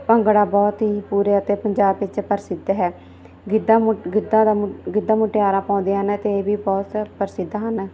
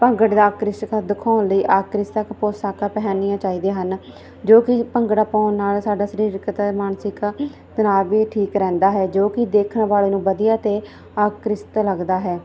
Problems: none marked